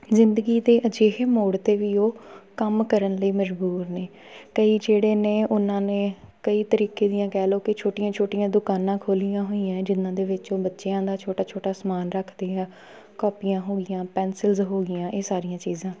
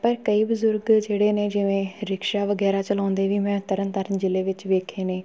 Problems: none marked